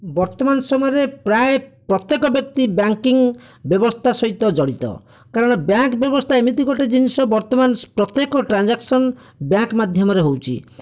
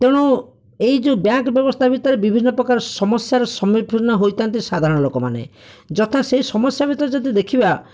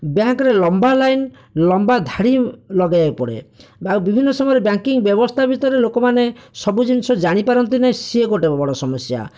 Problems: none marked